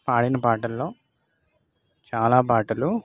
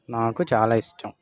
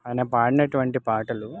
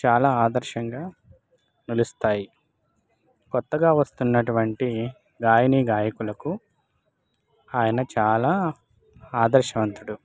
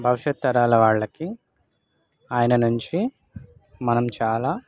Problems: none marked